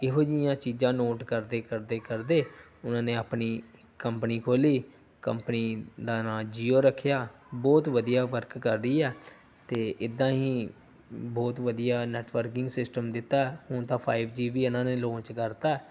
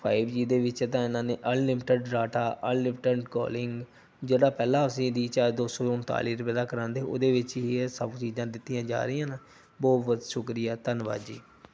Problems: background conversations at intervals